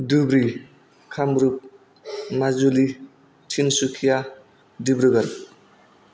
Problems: none marked